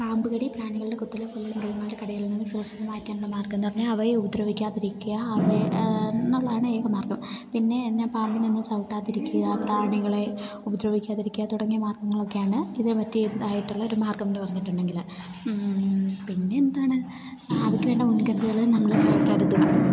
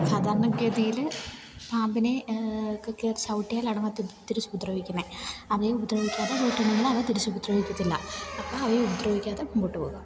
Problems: background sounds at intervals, low volume